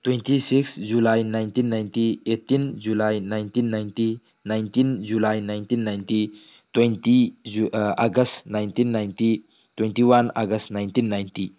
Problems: background conversations at intervals